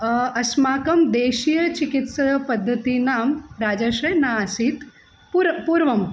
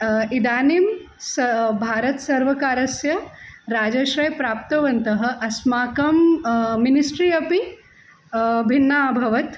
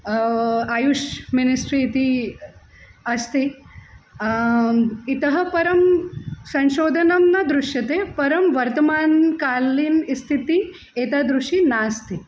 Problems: constant background noise